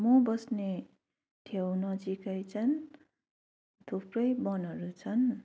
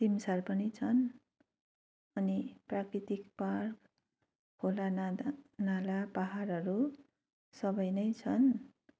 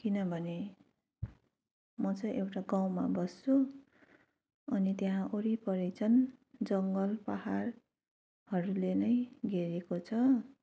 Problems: continuous background conversations